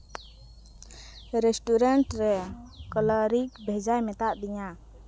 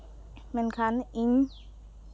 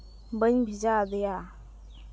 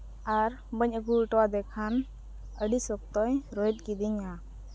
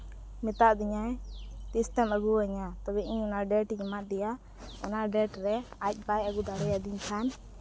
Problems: none marked